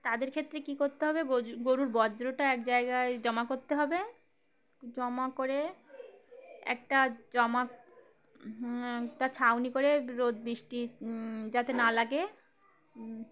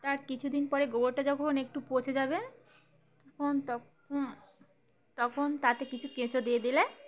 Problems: constant background noise, continuous background conversations